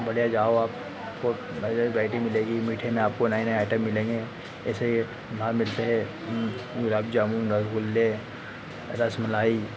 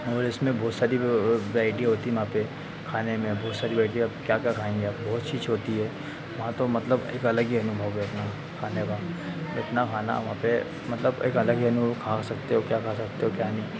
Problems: constant background noise